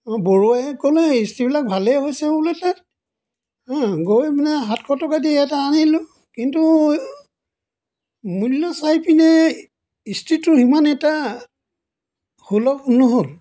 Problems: none marked